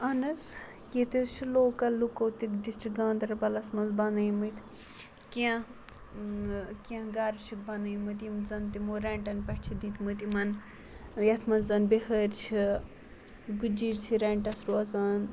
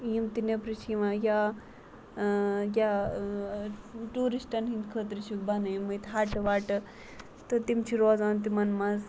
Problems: constant background noise